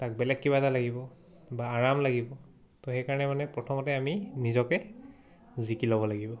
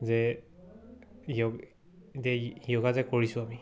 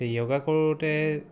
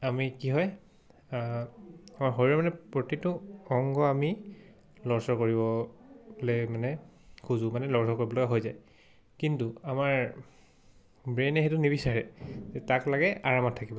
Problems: none marked